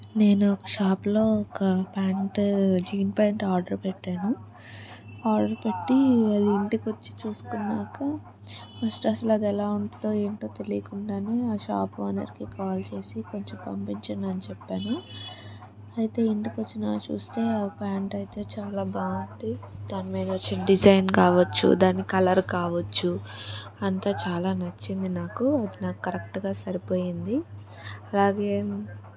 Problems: constant background noise, continuous background conversations